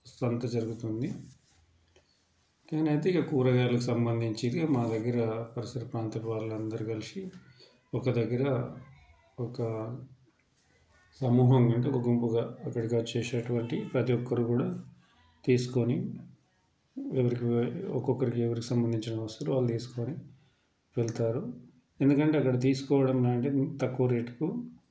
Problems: constant background noise, background conversations at intervals